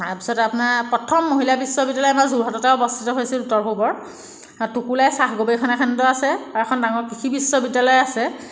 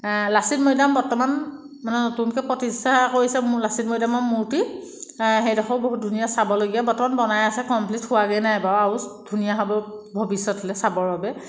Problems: none marked